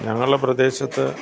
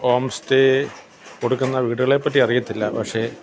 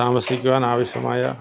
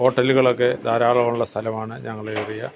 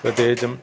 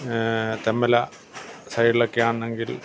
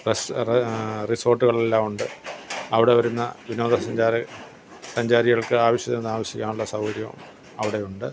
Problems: constant background noise, low volume